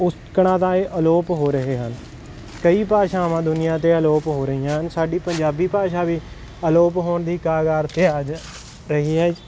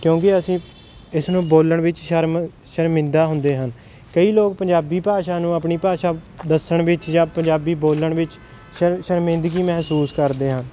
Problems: constant background noise